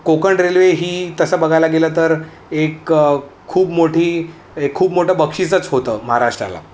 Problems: none marked